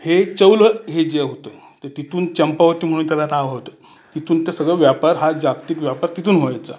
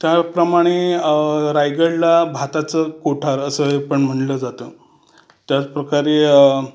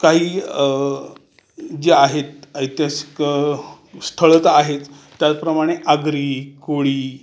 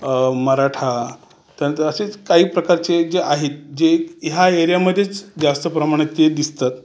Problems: constant background noise, background conversations at intervals